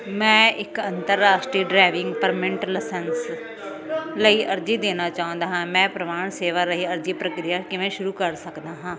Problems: constant background noise, background conversations at intervals